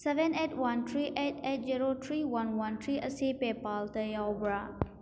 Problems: background sounds at intervals